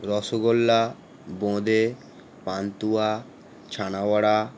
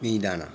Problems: constant background noise